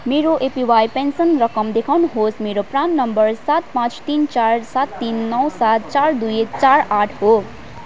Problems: none marked